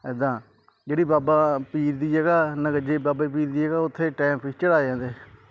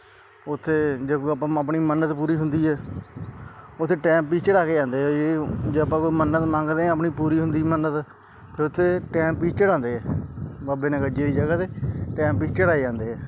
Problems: background sounds at intervals